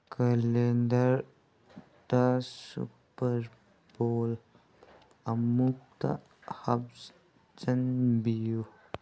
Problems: background sounds at intervals